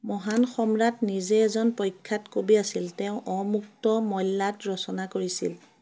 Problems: background sounds at intervals, background conversations at intervals